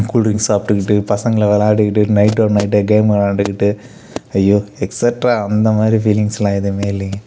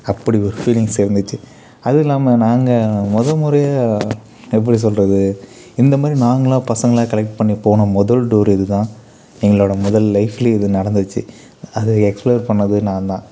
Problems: none marked